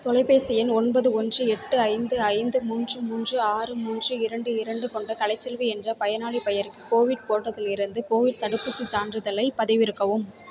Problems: continuous background conversations